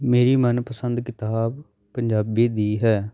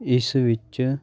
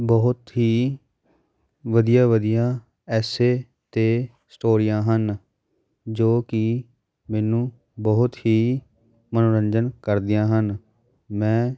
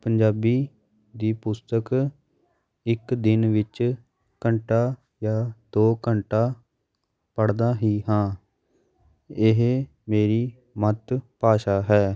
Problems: background sounds at intervals, continuous background conversations